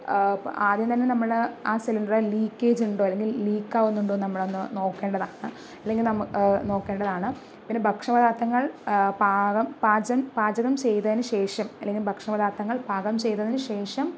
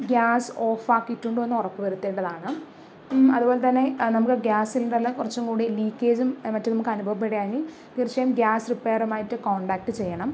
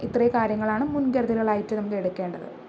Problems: none marked